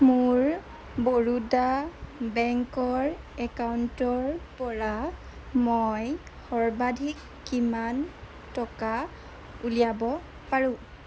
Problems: constant background noise